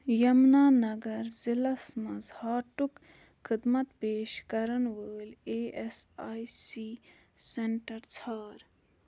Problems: none marked